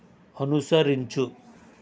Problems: constant background noise